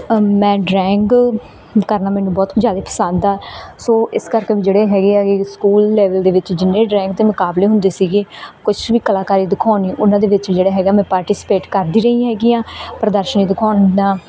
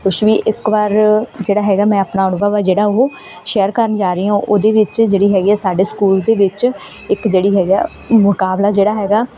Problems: none marked